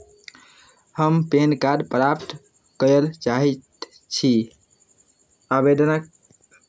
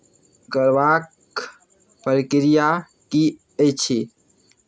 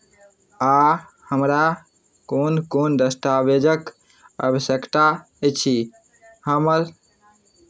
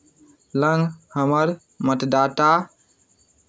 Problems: none marked